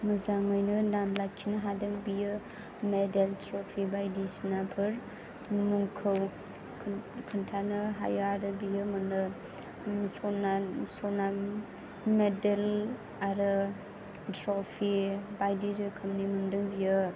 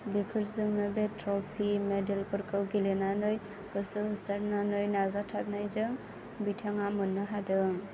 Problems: background sounds at intervals